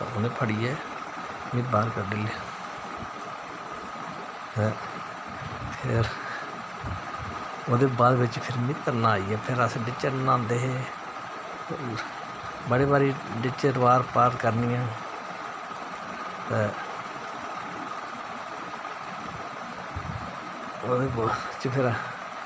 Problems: constant background noise